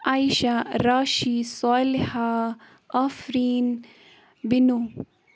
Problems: none marked